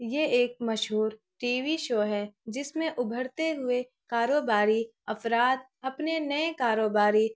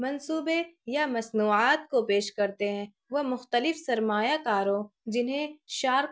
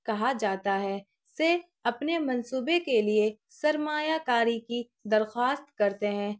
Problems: none marked